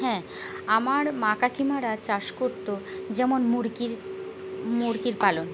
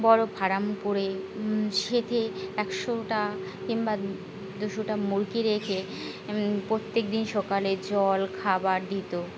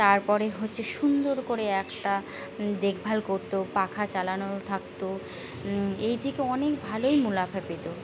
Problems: constant background noise